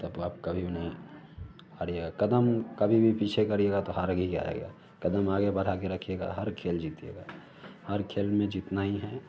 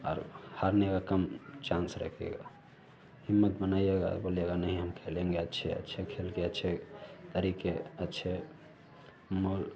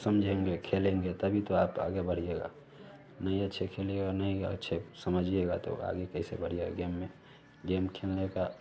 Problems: none marked